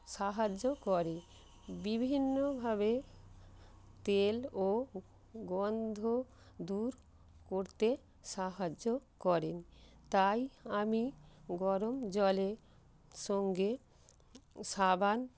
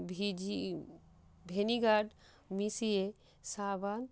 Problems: constant background noise